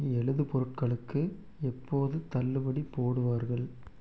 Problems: none marked